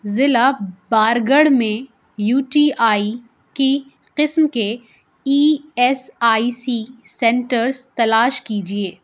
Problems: none marked